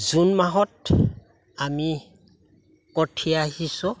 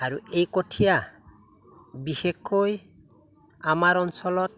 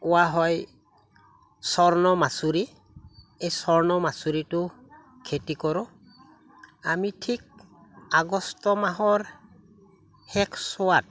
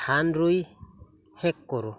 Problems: none marked